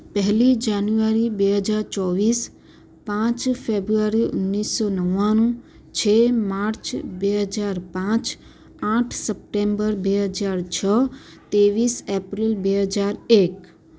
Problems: none marked